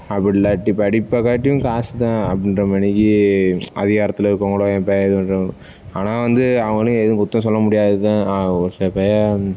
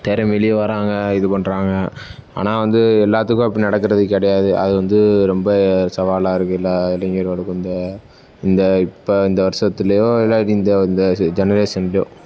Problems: constant background noise